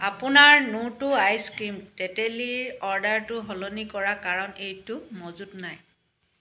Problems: none marked